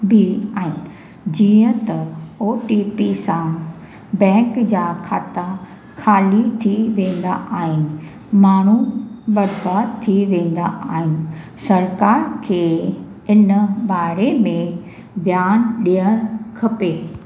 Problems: echo